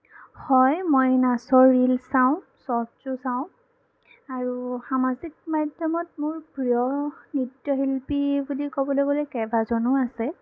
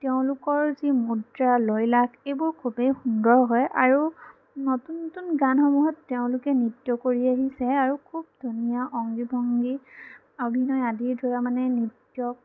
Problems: background sounds at intervals